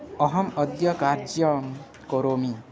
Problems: constant background noise